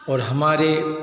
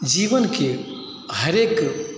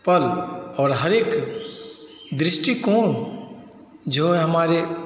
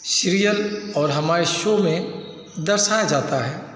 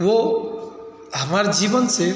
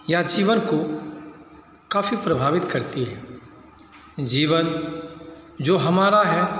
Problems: background sounds at intervals